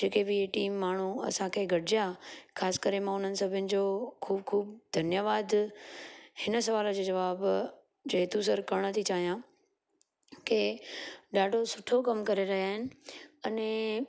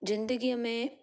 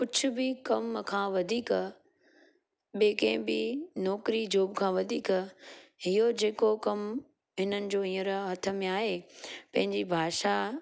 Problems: constant background noise